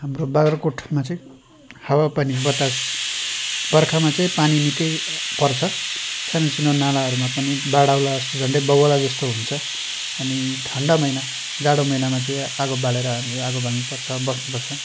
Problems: constant background noise